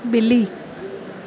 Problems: none marked